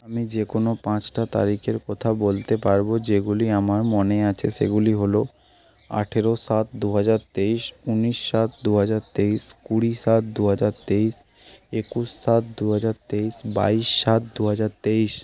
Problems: none marked